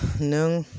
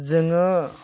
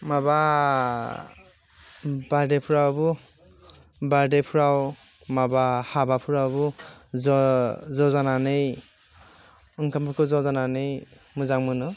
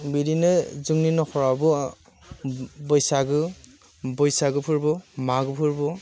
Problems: constant background noise